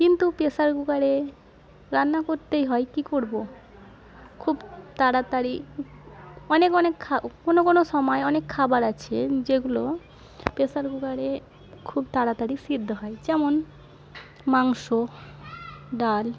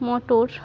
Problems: none marked